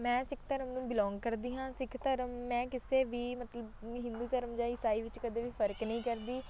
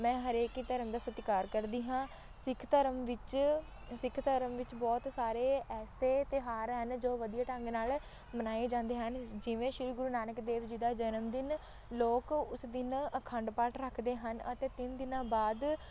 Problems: constant background noise, background conversations at intervals